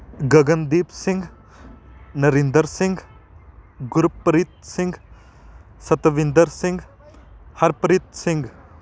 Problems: constant background noise, background conversations at intervals